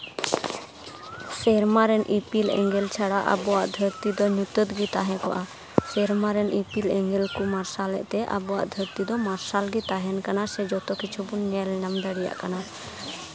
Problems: constant background noise, continuous background conversations